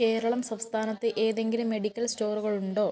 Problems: none marked